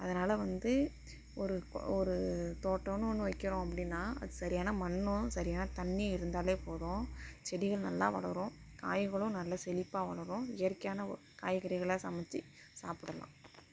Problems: constant background noise, low volume